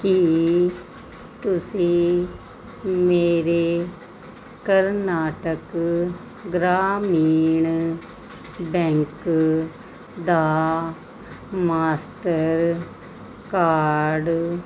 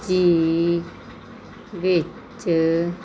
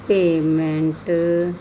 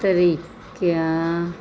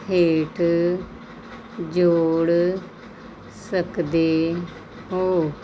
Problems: none marked